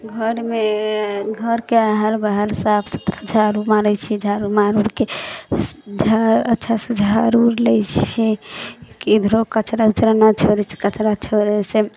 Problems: background conversations at intervals